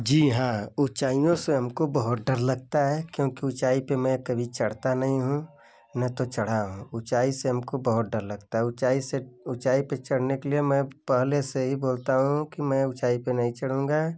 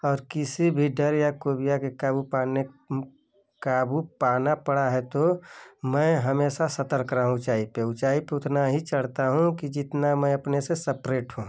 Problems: none marked